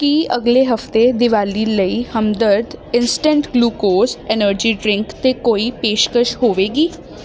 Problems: none marked